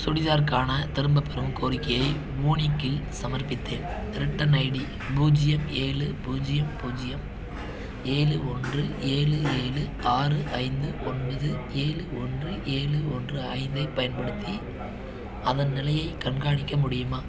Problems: none marked